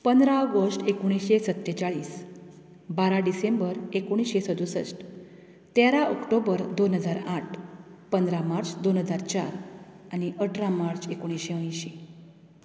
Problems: none marked